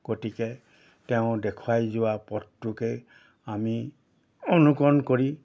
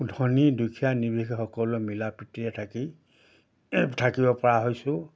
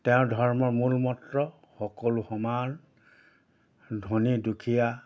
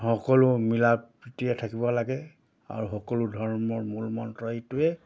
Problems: background sounds at intervals